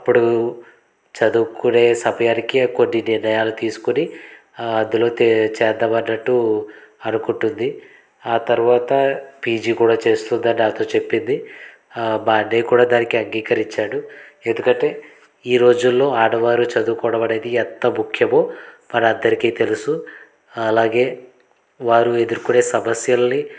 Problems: background sounds at intervals, background conversations at intervals